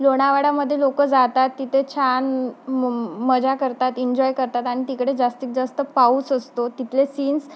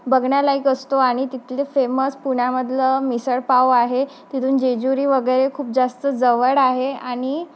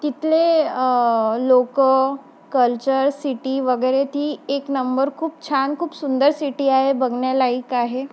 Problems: constant background noise